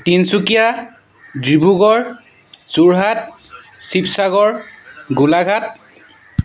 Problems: constant background noise